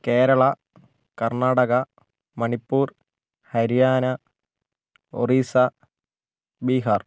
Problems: none marked